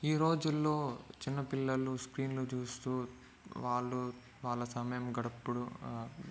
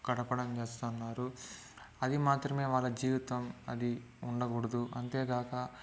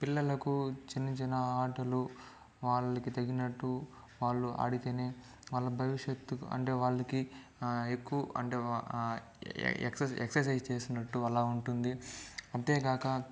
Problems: low volume